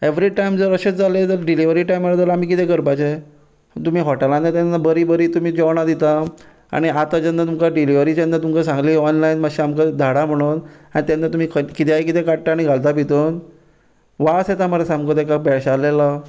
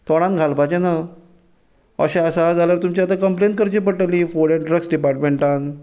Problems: none marked